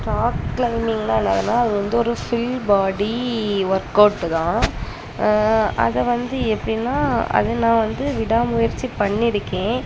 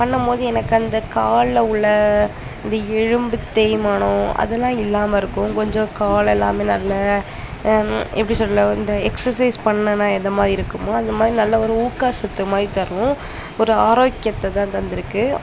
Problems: constant background noise, continuous background conversations